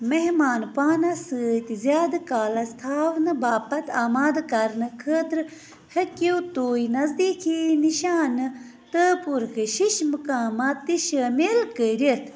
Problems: constant background noise